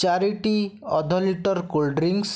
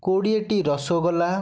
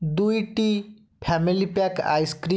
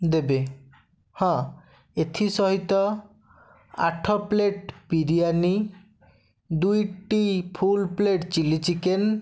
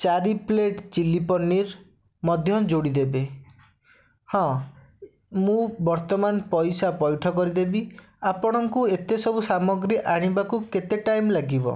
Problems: none marked